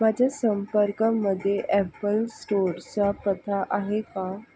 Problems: none marked